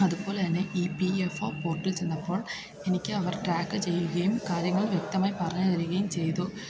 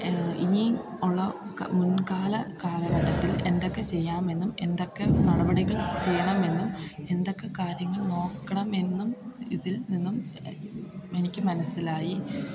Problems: constant background noise